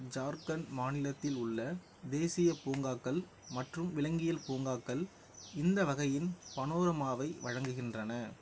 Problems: none marked